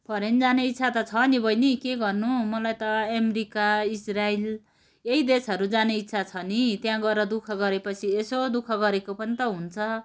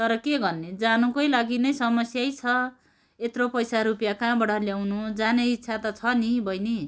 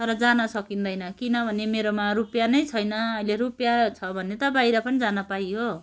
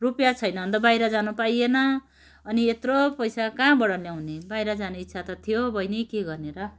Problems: constant background noise